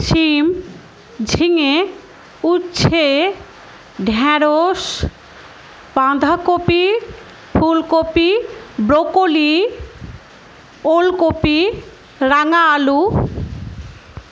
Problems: background sounds at intervals